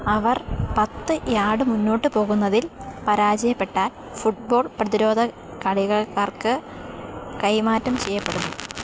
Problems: constant background noise